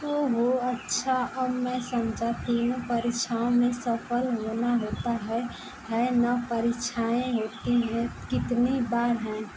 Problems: none marked